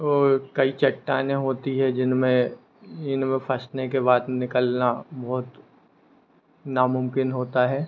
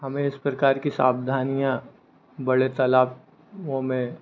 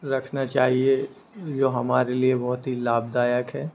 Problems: constant background noise